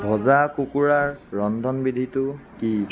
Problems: constant background noise, continuous background conversations